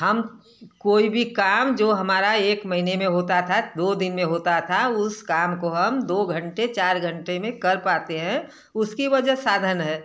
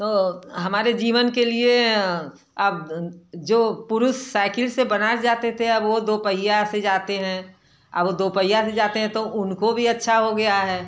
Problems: none marked